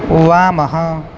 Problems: constant background noise